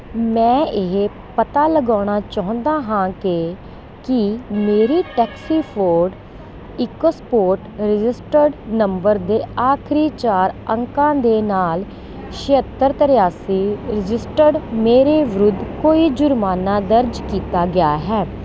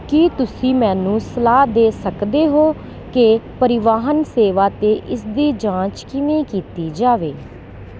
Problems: constant background noise